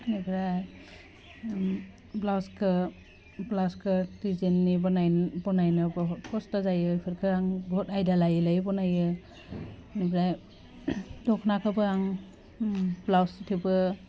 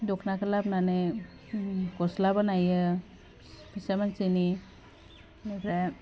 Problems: constant background noise